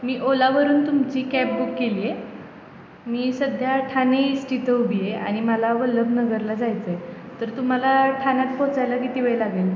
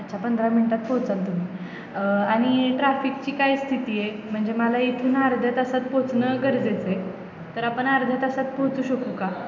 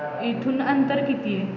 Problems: constant background noise, background conversations at intervals